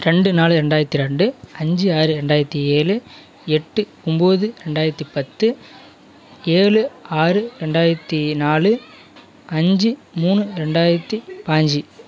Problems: continuous background conversations